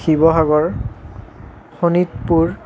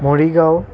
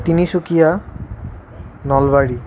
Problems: constant background noise